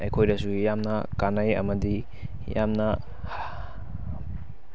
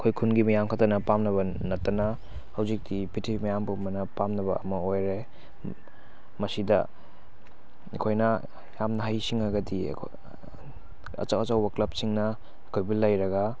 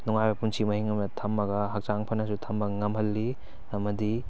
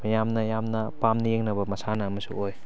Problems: constant background noise